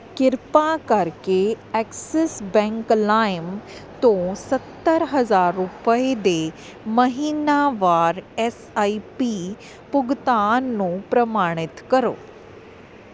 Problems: constant background noise